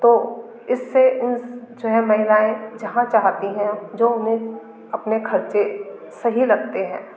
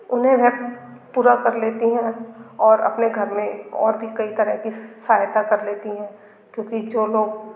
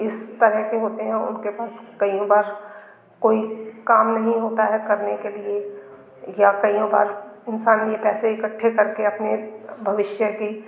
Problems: constant background noise, background conversations at intervals